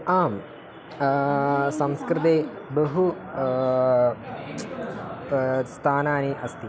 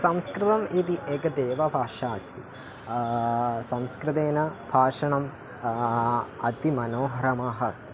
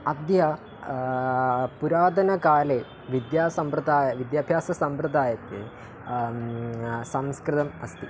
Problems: none marked